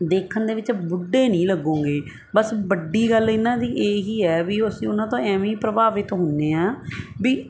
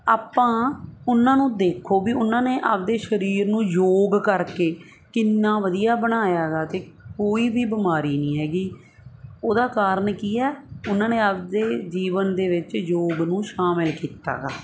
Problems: constant background noise